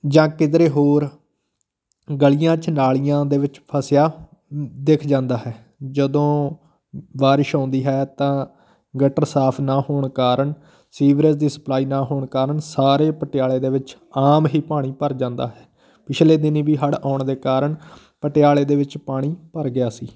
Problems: background sounds at intervals, continuous background conversations